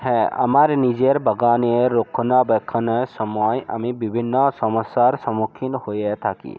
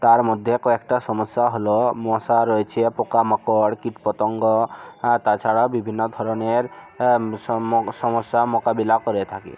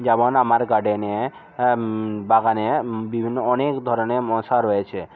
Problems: constant background noise